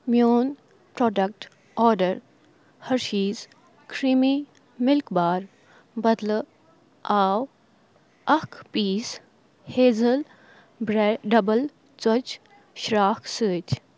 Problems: background sounds at intervals, background conversations at intervals